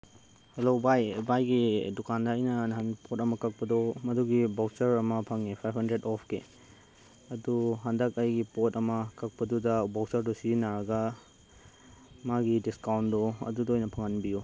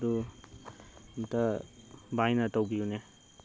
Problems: none marked